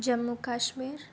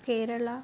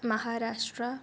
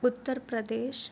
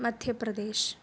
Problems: none marked